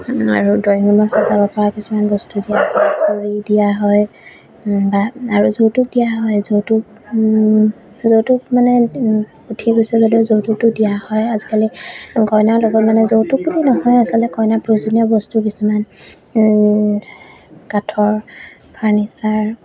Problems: background sounds at intervals